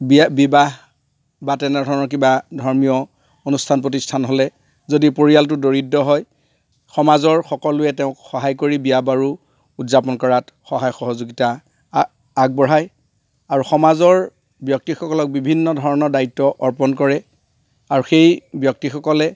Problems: none marked